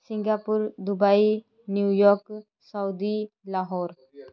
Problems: background conversations at intervals